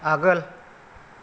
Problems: none marked